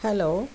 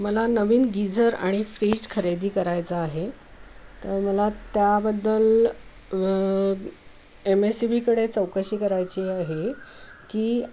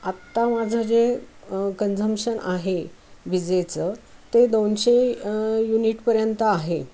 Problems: none marked